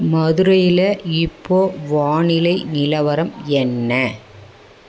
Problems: background conversations at intervals